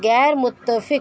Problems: constant background noise